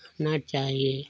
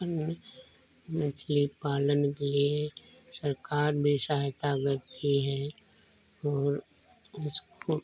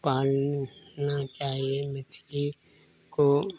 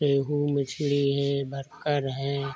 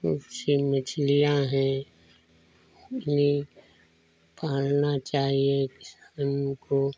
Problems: low volume